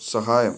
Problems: constant background noise